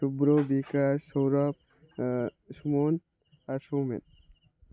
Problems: constant background noise